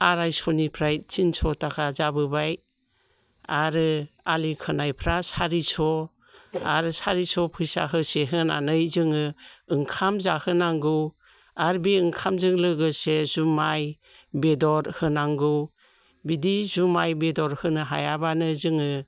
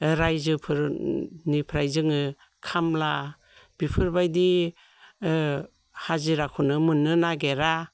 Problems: none marked